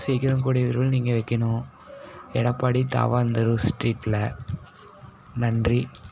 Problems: none marked